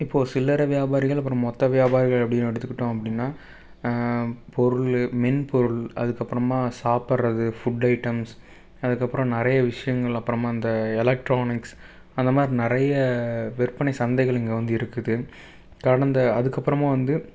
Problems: none marked